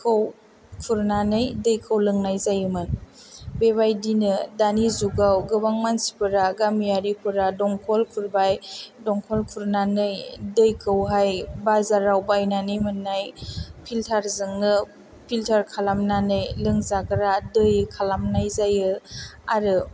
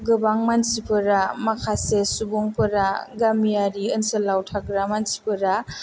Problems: none marked